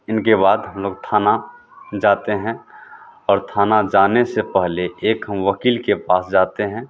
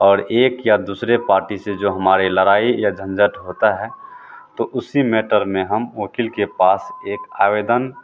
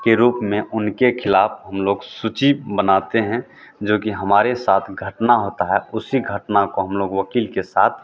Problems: constant background noise